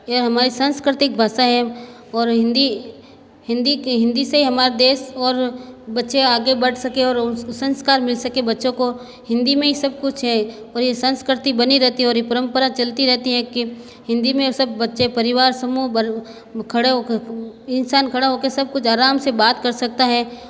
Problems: constant background noise, echo